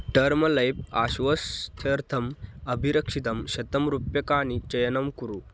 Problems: constant background noise